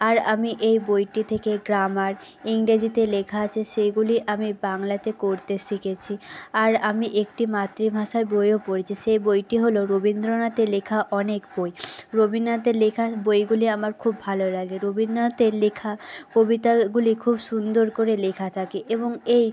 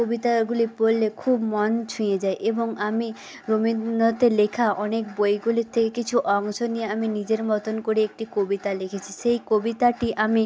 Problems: constant background noise